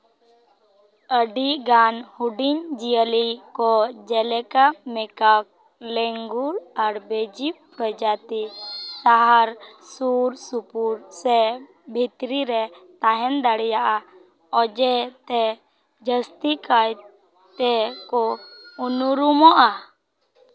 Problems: background sounds at intervals